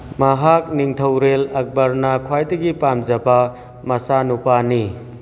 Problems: background sounds at intervals, background conversations at intervals